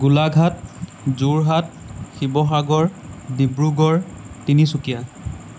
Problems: constant background noise